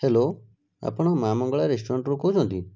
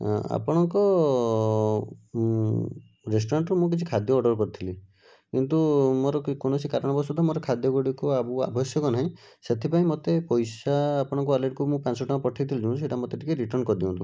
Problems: none marked